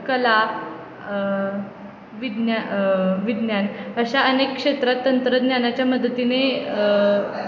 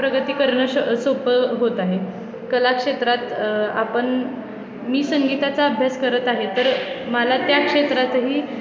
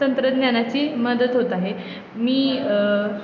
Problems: constant background noise, continuous background conversations